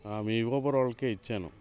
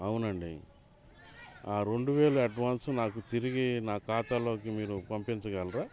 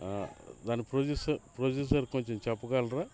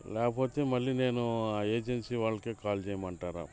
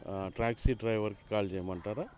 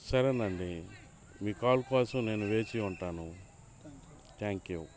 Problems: constant background noise, background conversations at intervals